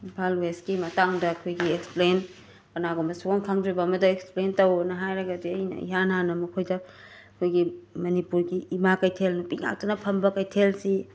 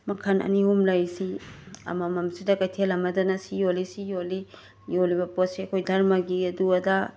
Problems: background sounds at intervals